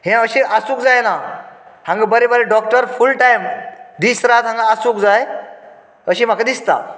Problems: none marked